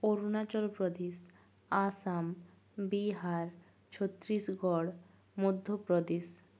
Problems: low volume